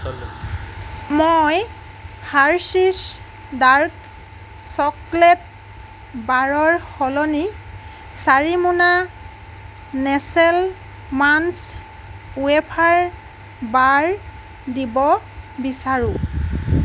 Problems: constant background noise, background conversations at intervals